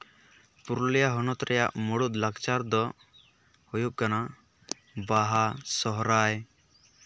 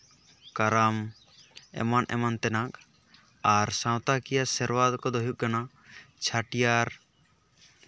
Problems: background sounds at intervals